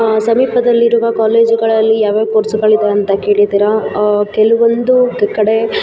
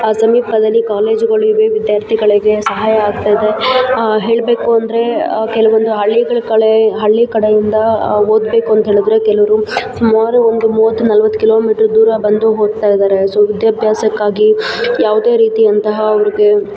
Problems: background sounds at intervals